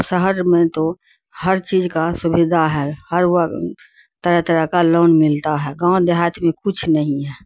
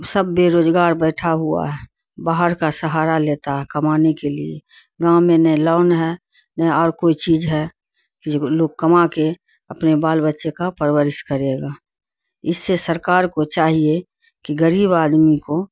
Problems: none marked